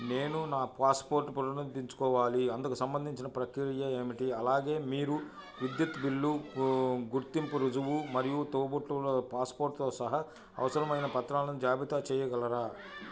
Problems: continuous background conversations